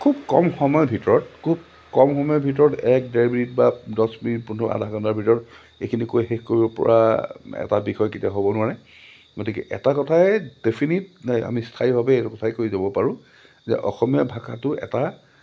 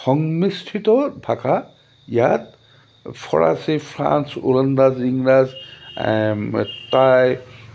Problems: none marked